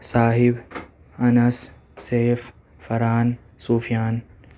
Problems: background sounds at intervals